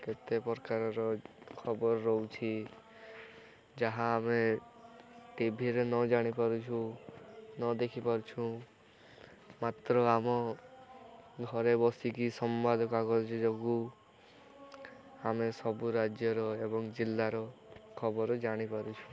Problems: continuous background conversations